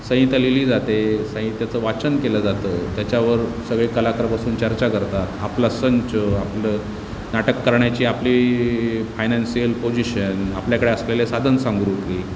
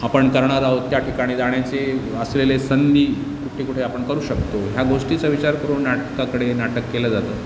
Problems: constant background noise, background conversations at intervals